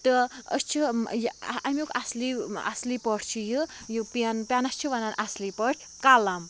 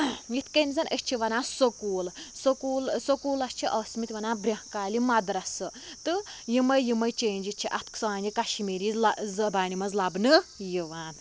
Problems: background sounds at intervals